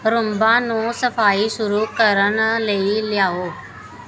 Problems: background conversations at intervals